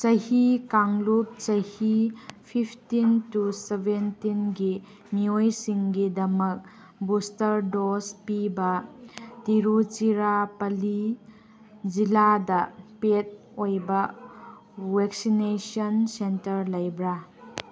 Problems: none marked